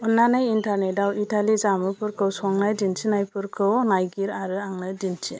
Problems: constant background noise